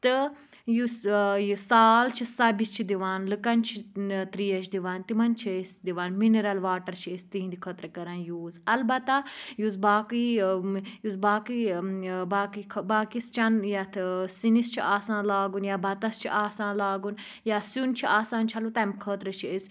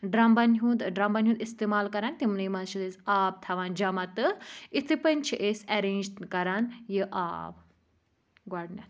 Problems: low volume